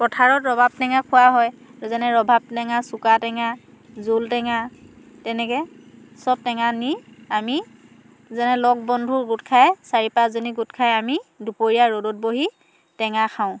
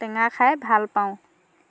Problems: low volume